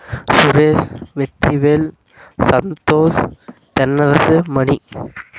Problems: constant background noise